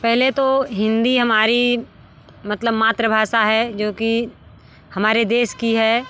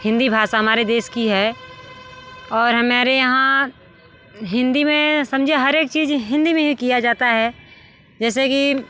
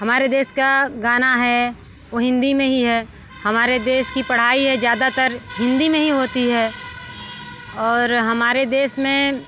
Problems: constant background noise, background conversations at intervals